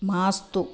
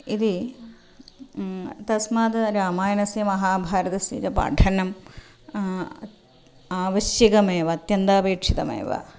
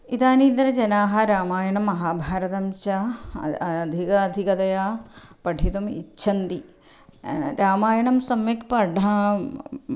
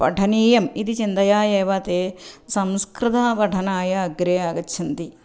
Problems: none marked